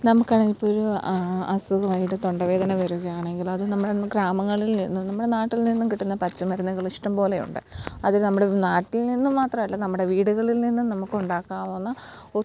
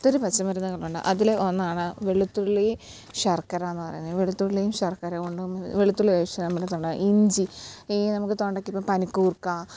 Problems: background sounds at intervals, low volume